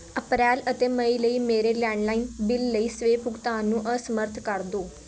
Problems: background conversations at intervals